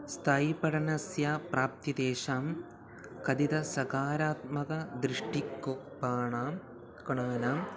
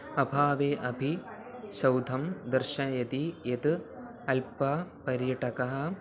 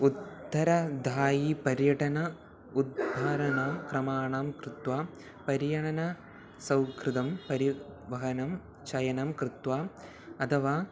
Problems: none marked